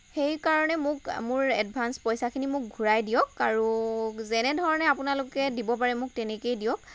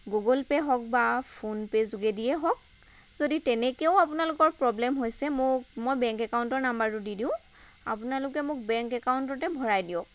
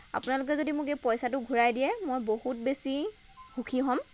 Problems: constant background noise